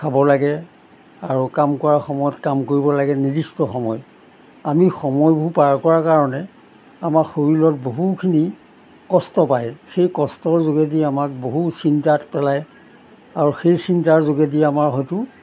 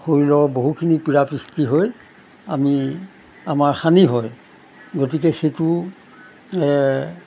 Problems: background sounds at intervals